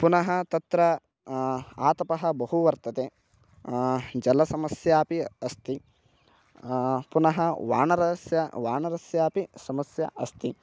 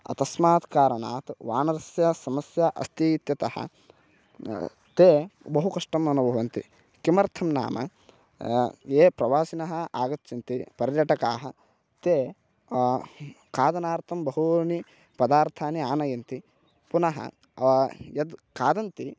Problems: none marked